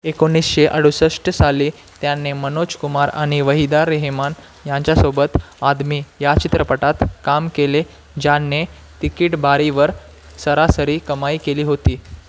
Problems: constant background noise